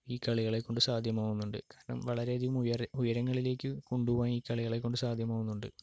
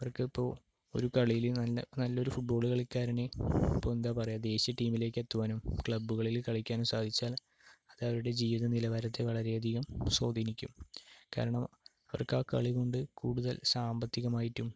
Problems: low volume